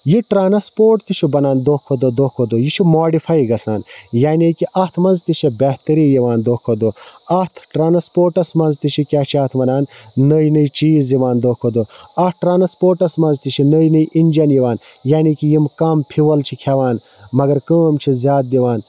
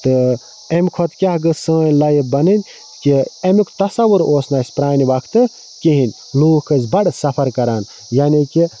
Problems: constant background noise